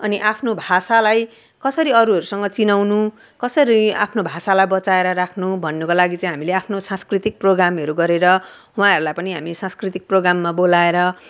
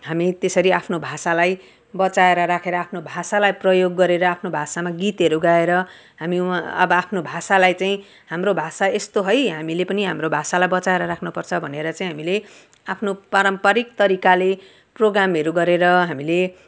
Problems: background sounds at intervals